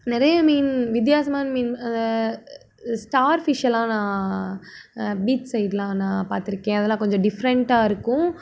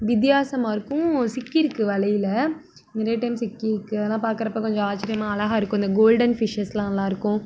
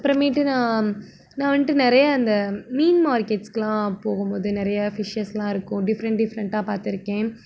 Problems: none marked